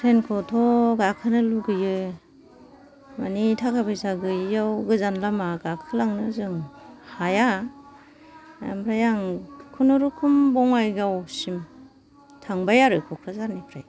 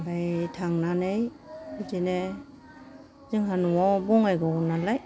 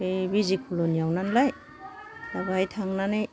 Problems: low volume